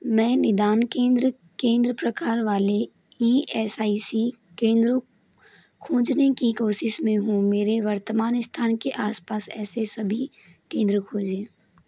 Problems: constant background noise